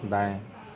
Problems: none marked